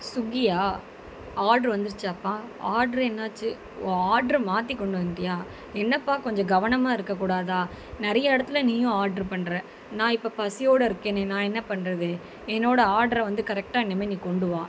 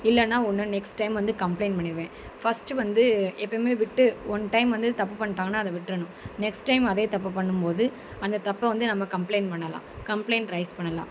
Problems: constant background noise